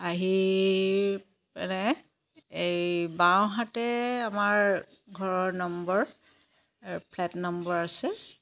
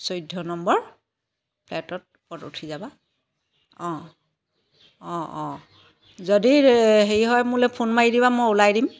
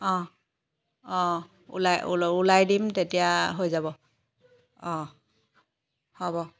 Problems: background sounds at intervals